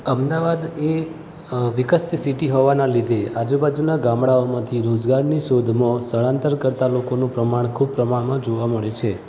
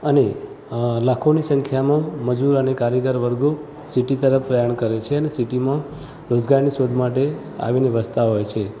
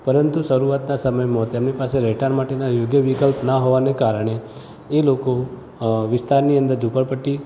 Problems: constant background noise, background conversations at intervals